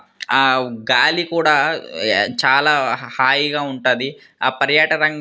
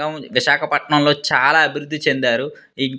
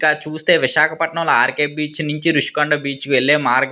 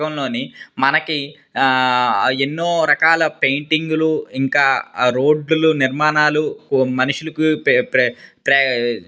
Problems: none marked